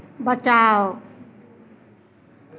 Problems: constant background noise